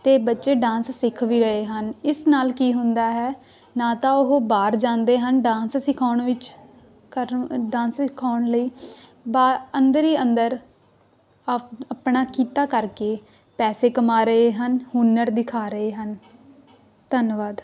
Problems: none marked